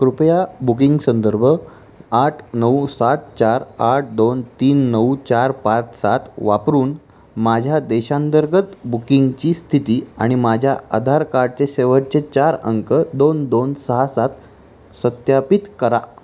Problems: constant background noise